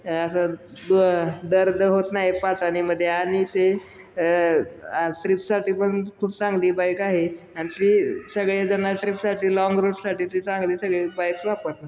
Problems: none marked